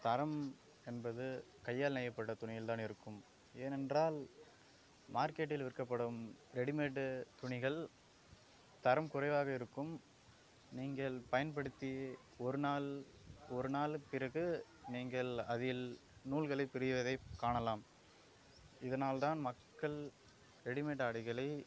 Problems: background sounds at intervals